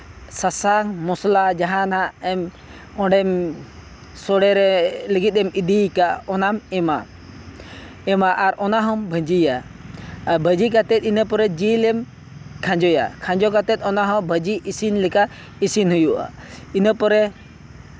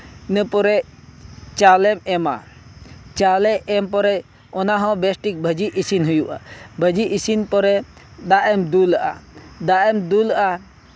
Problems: constant background noise